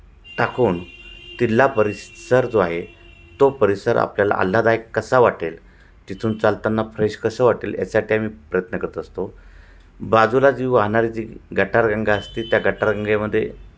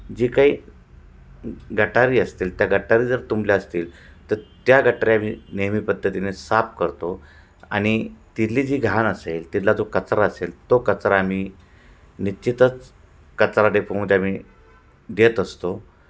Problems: constant background noise